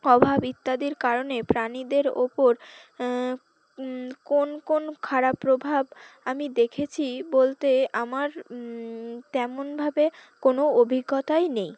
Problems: background sounds at intervals